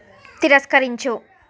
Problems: none marked